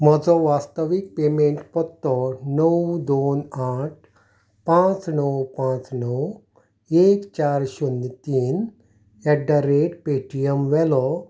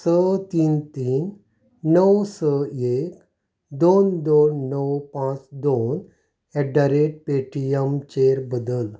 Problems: none marked